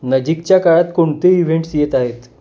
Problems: constant background noise